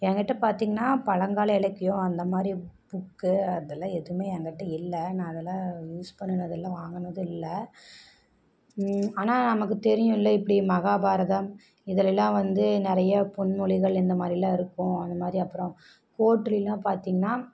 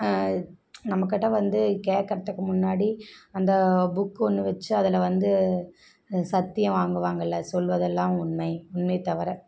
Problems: background sounds at intervals